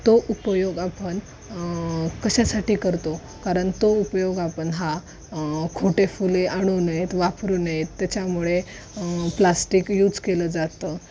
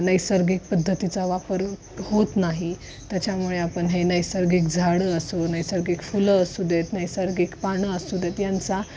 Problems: none marked